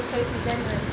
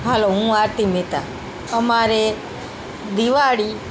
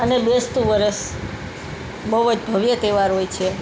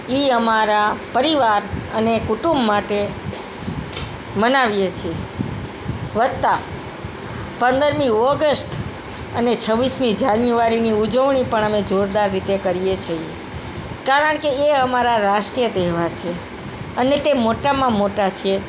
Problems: background sounds at intervals, background conversations at intervals